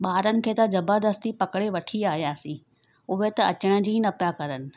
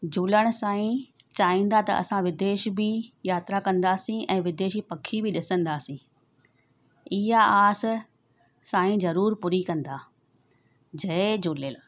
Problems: none marked